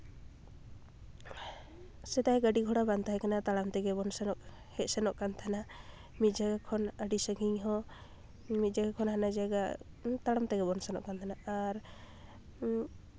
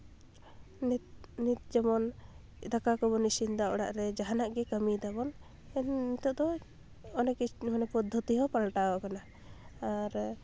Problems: constant background noise, background conversations at intervals